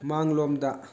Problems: background sounds at intervals, background conversations at intervals